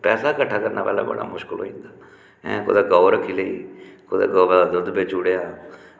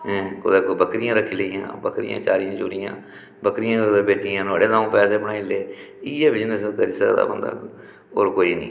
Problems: background sounds at intervals, echo